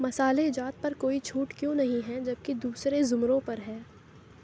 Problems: none marked